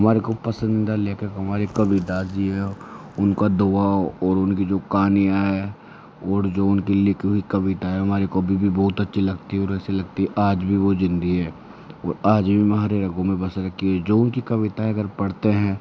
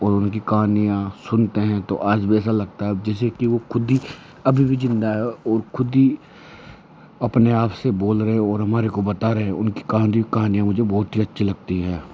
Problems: background sounds at intervals